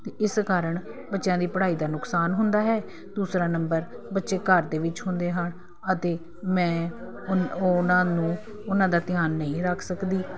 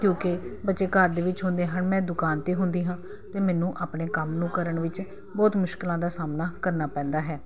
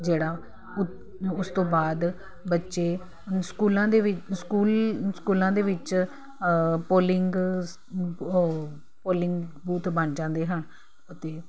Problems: none marked